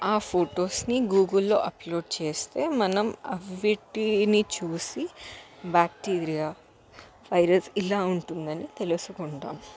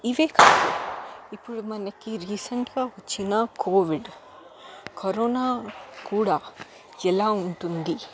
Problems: constant background noise, continuous background conversations